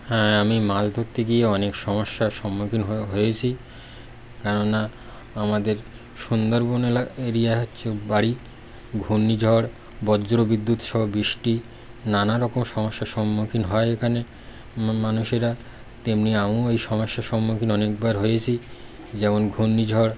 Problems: constant background noise